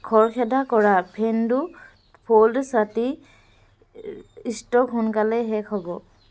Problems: none marked